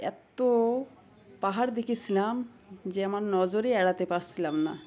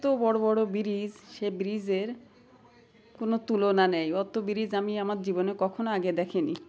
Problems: none marked